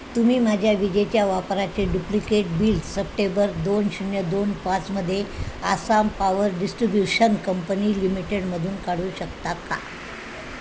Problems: constant background noise